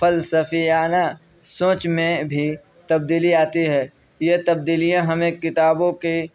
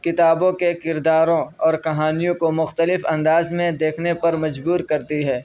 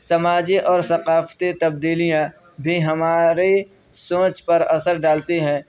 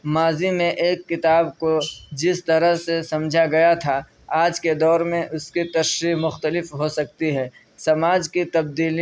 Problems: none marked